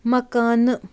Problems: none marked